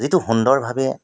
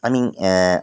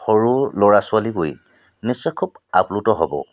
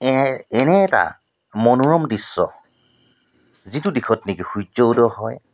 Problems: none marked